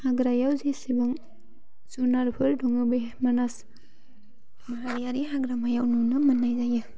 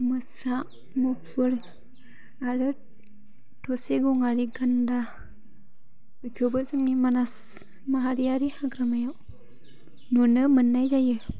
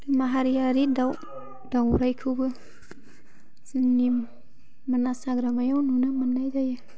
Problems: low volume